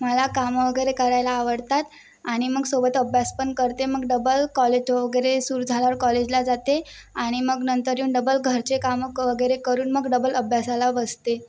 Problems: background sounds at intervals